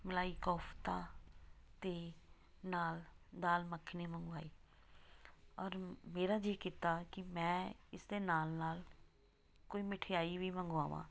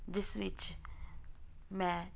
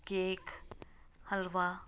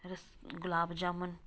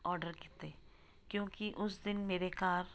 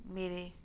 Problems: background sounds at intervals